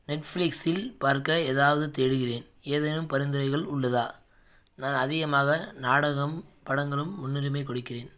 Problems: none marked